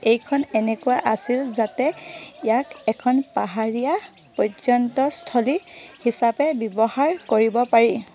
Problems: none marked